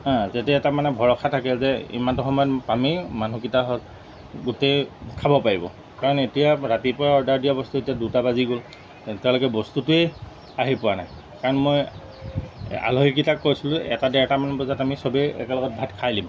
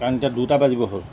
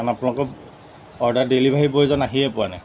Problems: background sounds at intervals